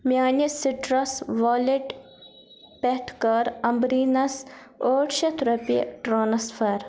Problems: background sounds at intervals